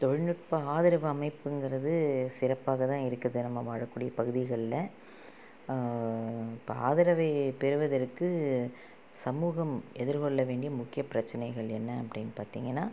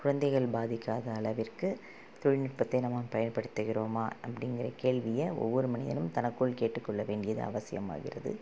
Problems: constant background noise